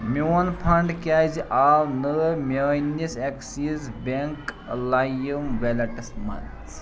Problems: continuous background conversations